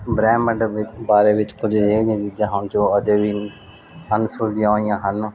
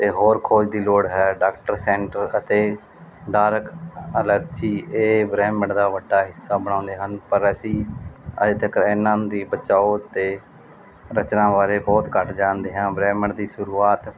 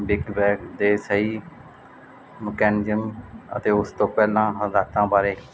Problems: constant background noise